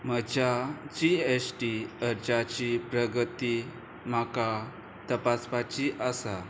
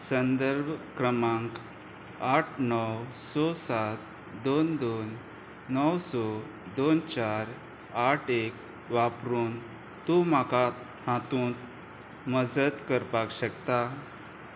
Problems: none marked